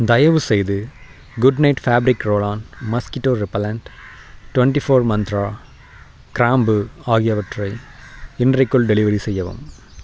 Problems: constant background noise